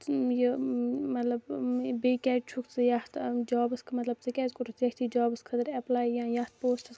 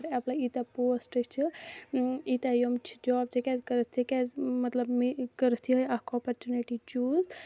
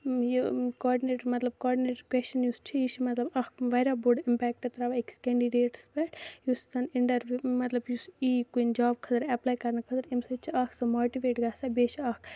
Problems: low volume